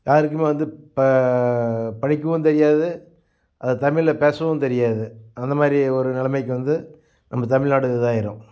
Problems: none marked